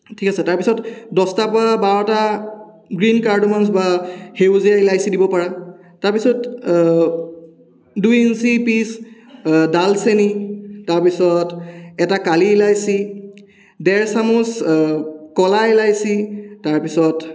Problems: echo